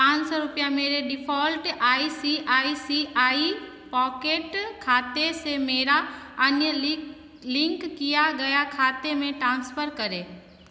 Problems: constant background noise, echo